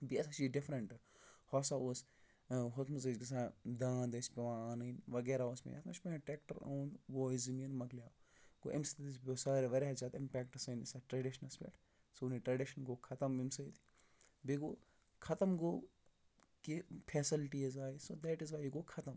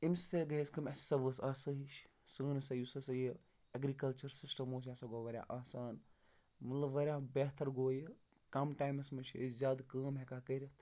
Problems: none marked